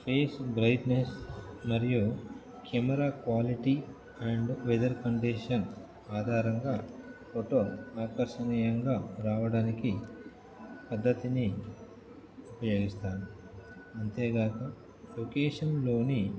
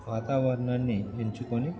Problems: background conversations at intervals